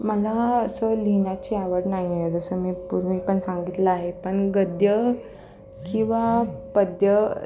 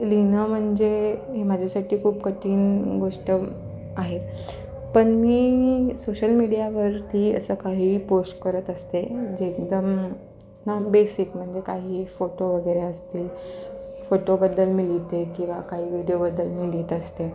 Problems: constant background noise, background conversations at intervals